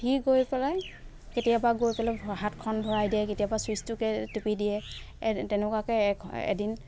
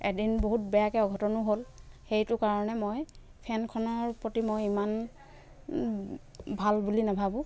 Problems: constant background noise